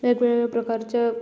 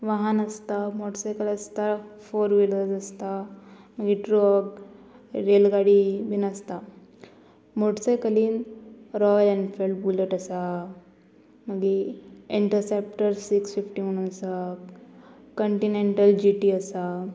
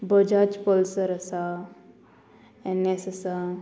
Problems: constant background noise